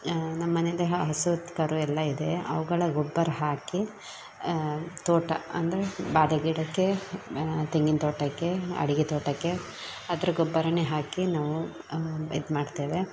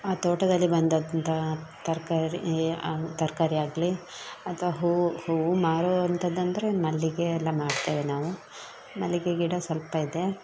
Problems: background sounds at intervals